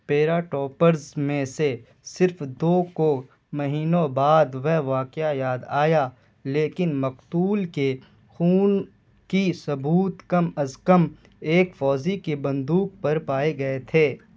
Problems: constant background noise